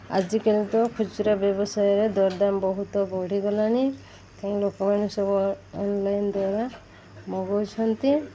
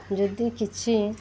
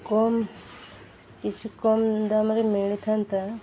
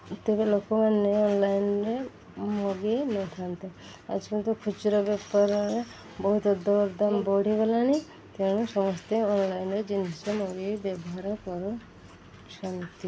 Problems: constant background noise